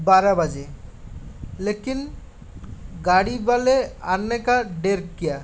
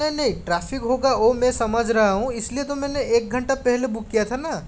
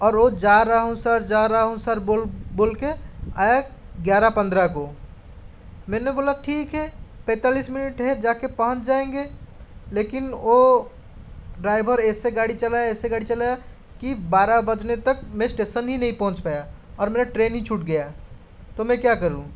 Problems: none marked